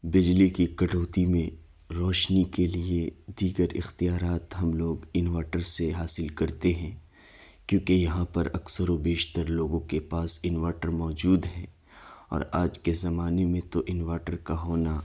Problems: none marked